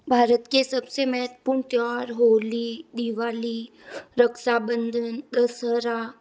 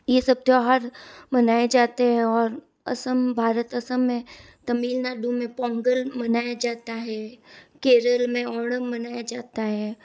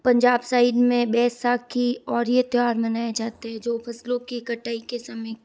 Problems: none marked